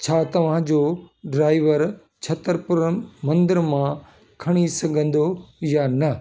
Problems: background sounds at intervals